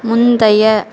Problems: constant background noise